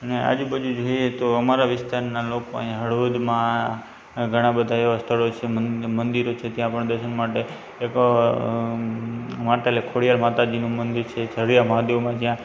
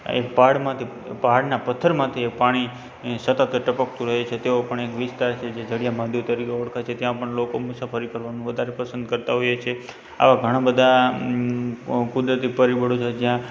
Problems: constant background noise